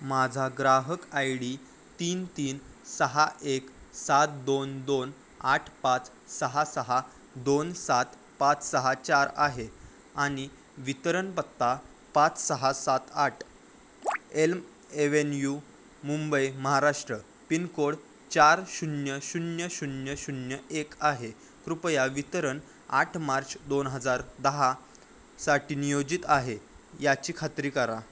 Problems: constant background noise